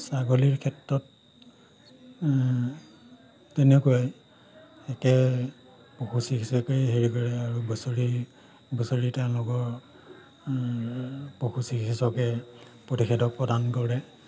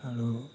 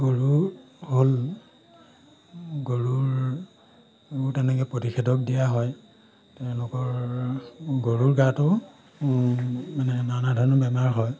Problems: background sounds at intervals